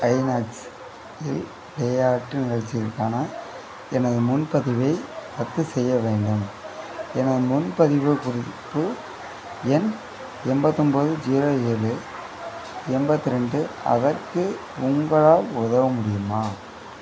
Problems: constant background noise